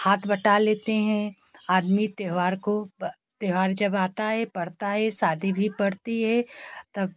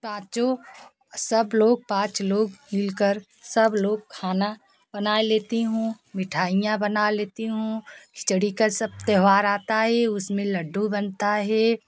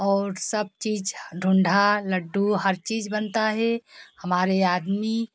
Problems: background sounds at intervals, continuous background conversations